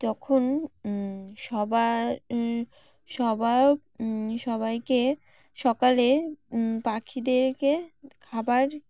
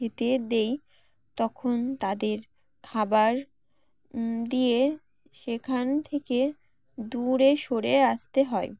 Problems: constant background noise, background conversations at intervals